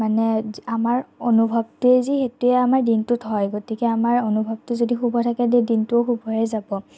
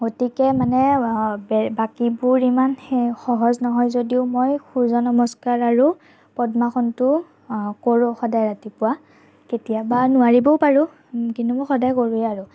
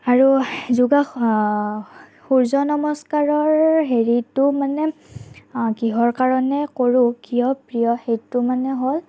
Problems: none marked